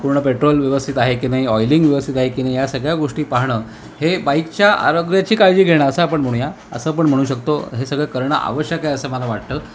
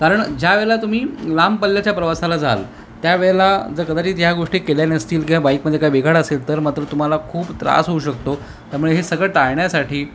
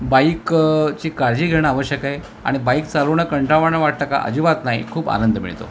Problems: constant background noise